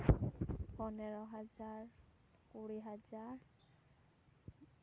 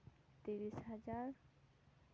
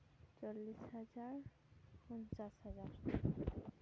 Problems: none marked